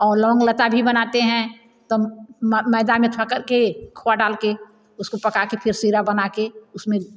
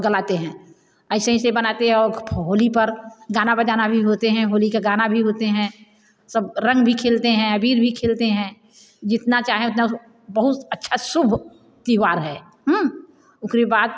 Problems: constant background noise, echo